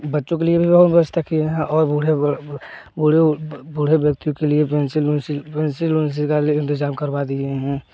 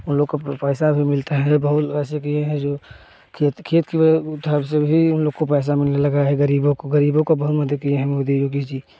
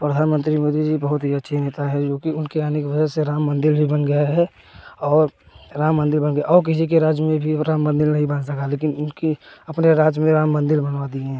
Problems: constant background noise